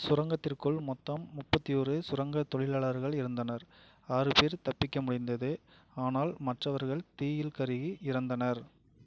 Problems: low volume